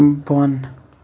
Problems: background sounds at intervals